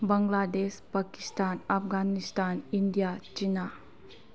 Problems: low volume